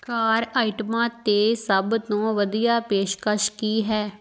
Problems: background conversations at intervals